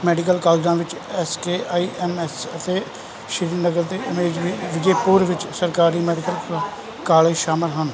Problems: background sounds at intervals